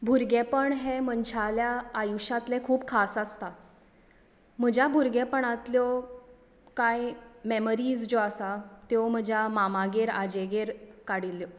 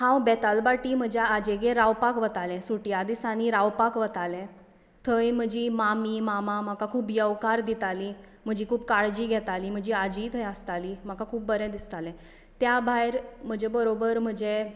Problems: none marked